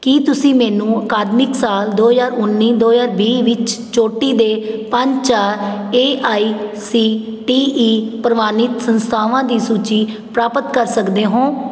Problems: constant background noise